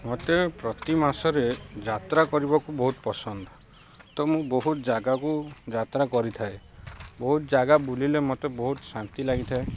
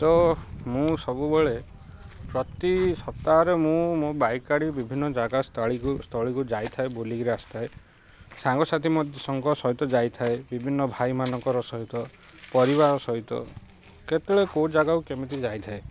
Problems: constant background noise, background conversations at intervals